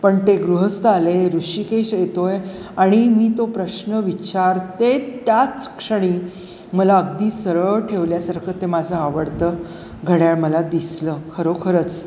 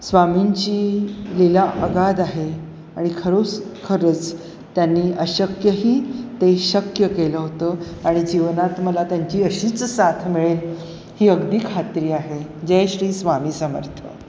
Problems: constant background noise